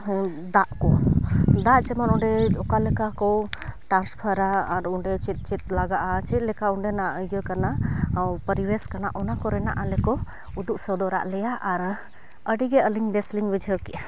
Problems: none marked